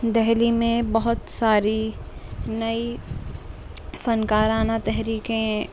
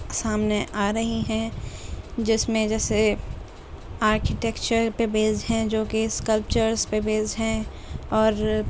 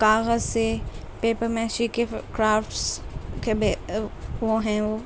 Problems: constant background noise, low volume